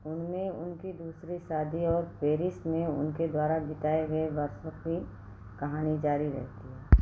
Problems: constant background noise